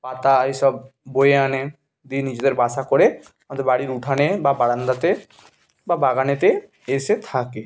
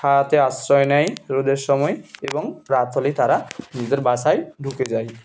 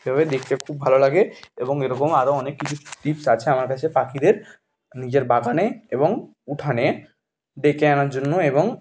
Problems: background sounds at intervals, background conversations at intervals